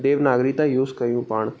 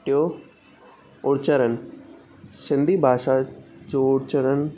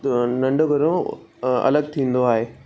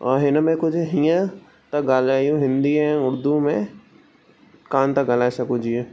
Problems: constant background noise, echo